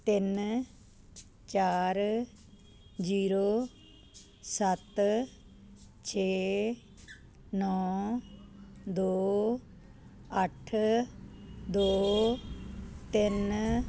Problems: none marked